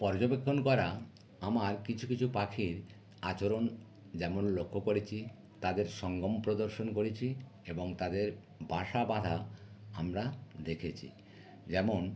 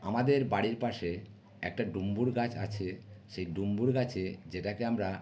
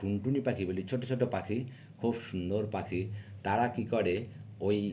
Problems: none marked